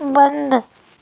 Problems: none marked